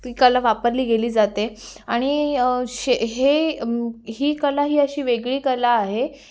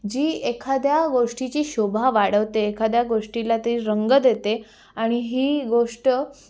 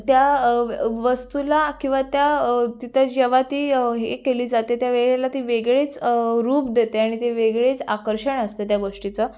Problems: background sounds at intervals, background conversations at intervals